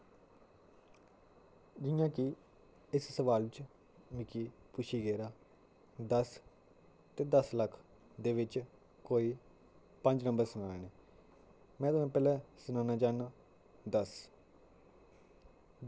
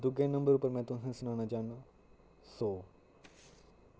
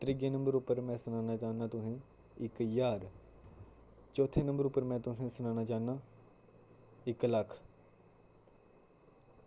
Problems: none marked